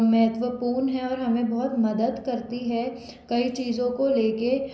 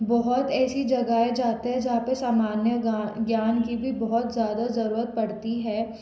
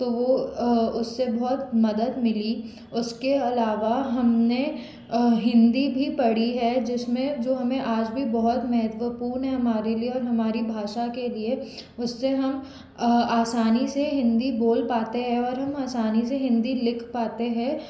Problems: constant background noise